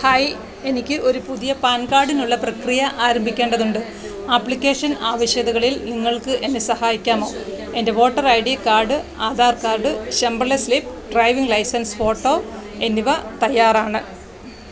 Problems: constant background noise